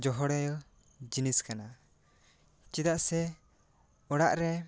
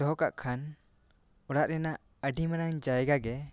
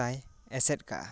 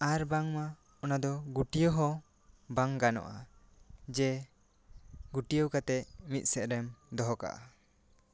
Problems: none marked